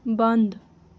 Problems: constant background noise